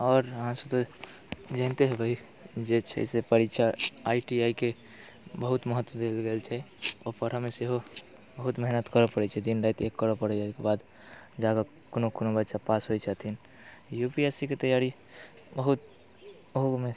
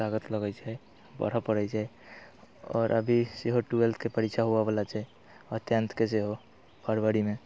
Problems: none marked